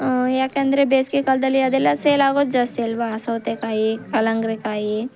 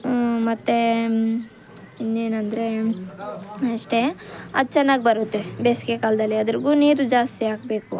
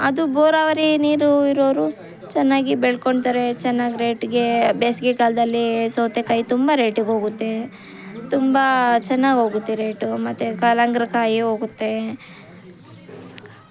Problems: background sounds at intervals